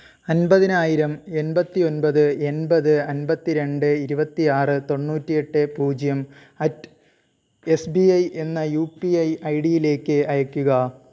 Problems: none marked